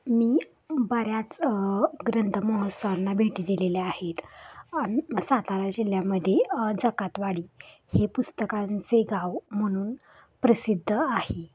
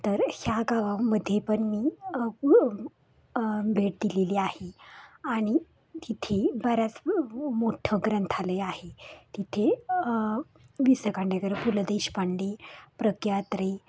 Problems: none marked